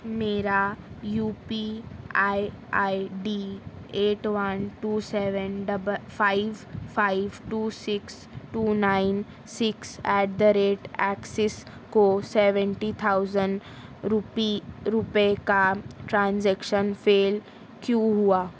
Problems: constant background noise